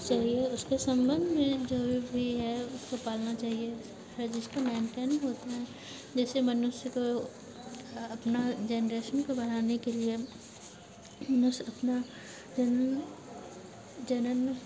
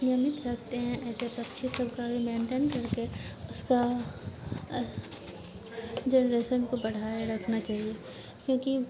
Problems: constant background noise